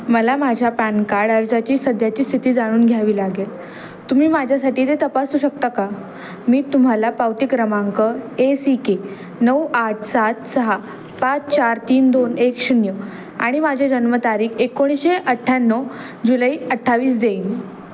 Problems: constant background noise, continuous background conversations